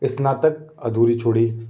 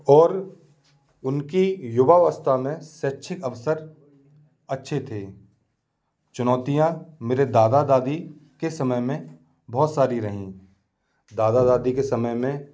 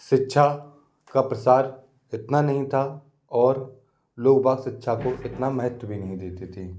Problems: constant background noise